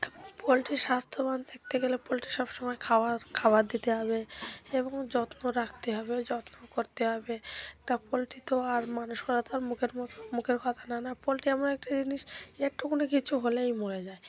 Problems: background conversations at intervals